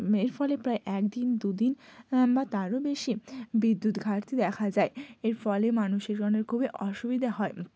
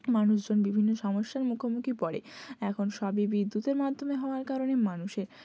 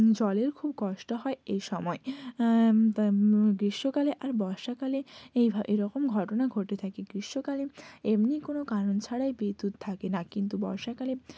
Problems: none marked